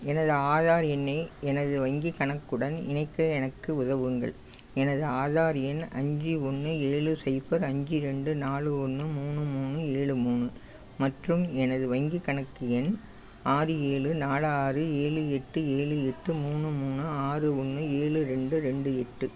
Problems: background sounds at intervals